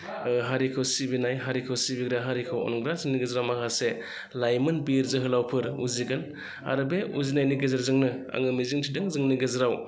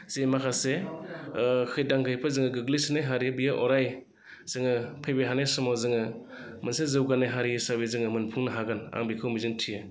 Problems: none marked